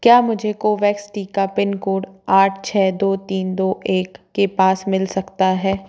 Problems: background sounds at intervals